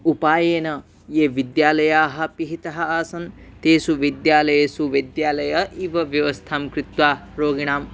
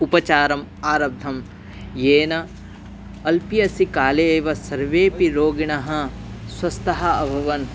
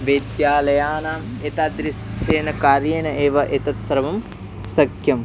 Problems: constant background noise, background conversations at intervals